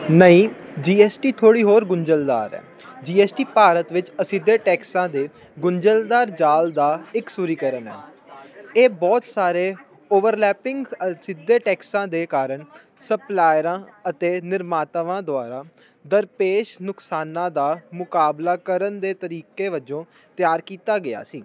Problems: none marked